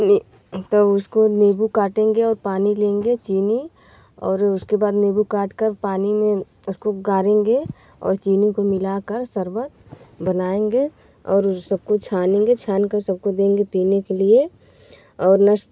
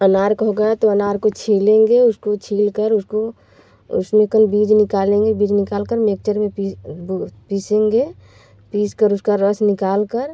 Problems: background sounds at intervals